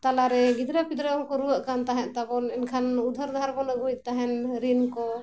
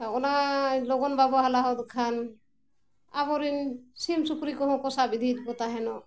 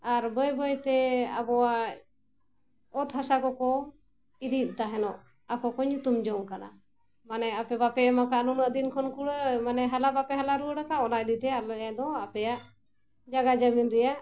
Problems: none marked